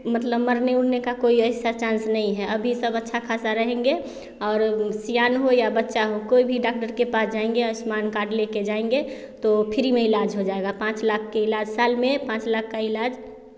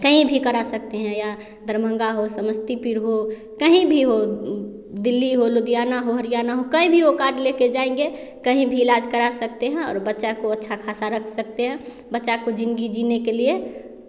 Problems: constant background noise